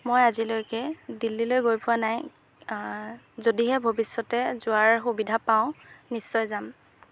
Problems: background sounds at intervals